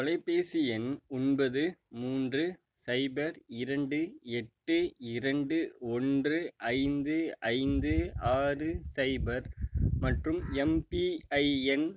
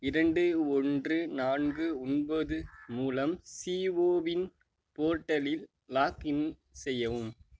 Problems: none marked